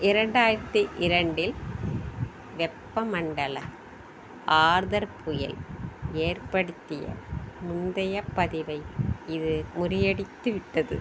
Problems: background sounds at intervals